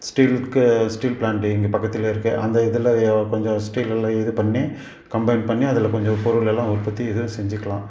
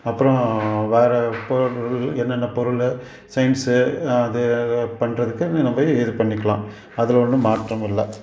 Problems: background sounds at intervals